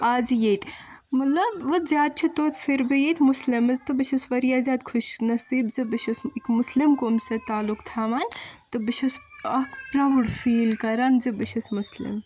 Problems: background sounds at intervals